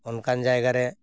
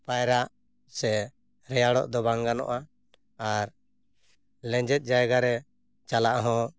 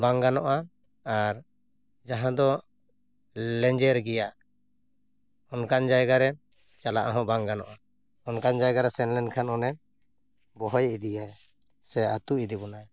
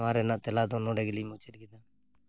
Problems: none marked